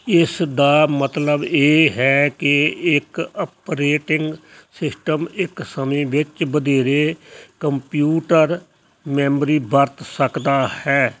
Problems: none marked